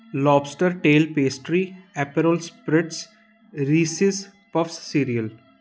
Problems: constant background noise